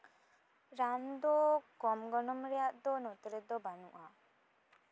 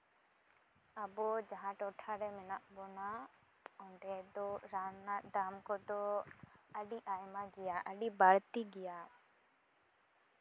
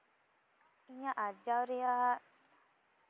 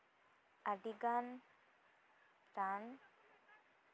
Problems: none marked